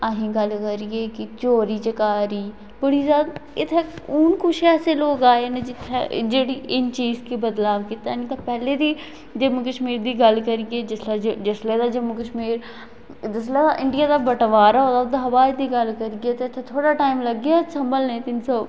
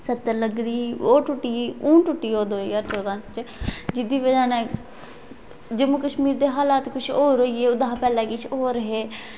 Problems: constant background noise, echo